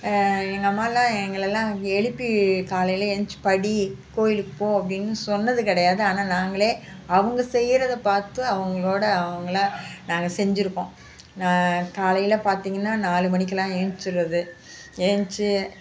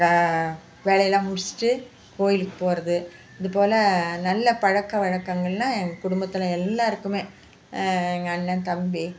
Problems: constant background noise